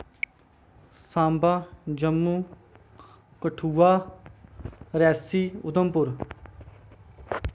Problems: background sounds at intervals